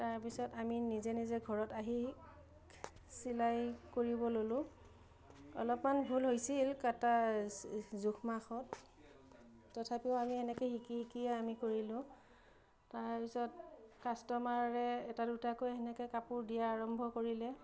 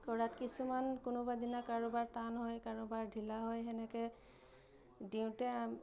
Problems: low volume